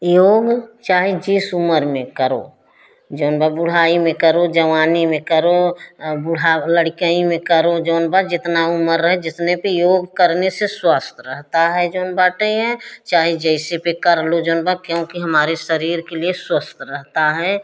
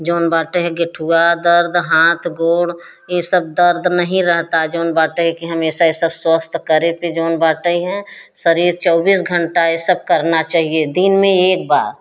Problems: none marked